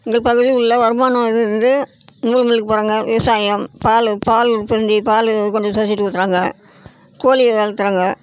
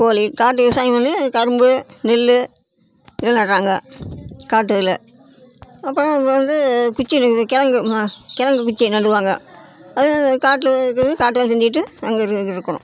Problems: constant background noise, background conversations at intervals